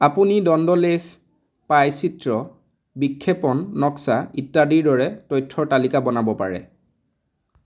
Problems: none marked